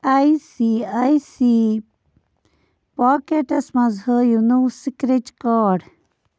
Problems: constant background noise